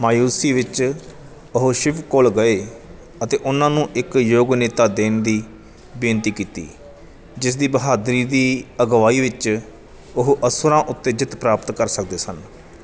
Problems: none marked